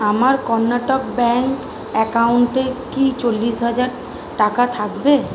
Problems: none marked